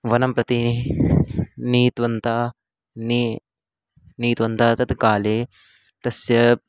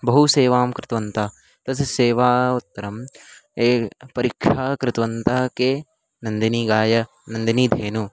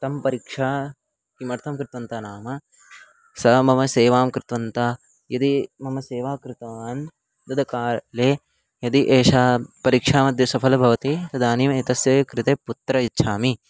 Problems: constant background noise